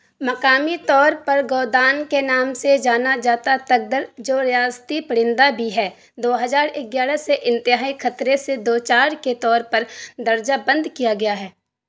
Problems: constant background noise